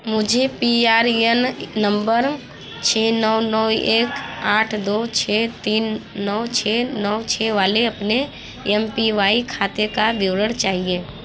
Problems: constant background noise, continuous background conversations